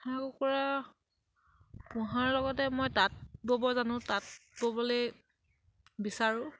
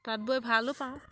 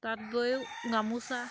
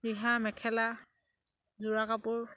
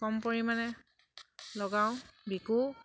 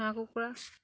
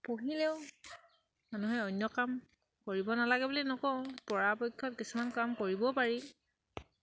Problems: background sounds at intervals